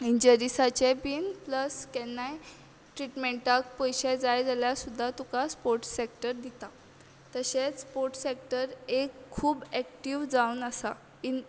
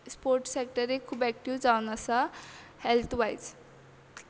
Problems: background conversations at intervals